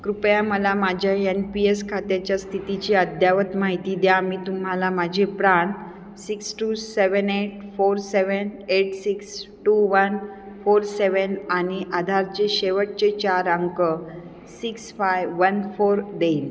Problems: constant background noise, background conversations at intervals, echo